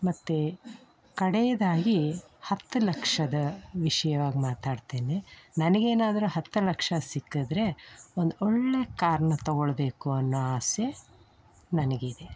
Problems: none marked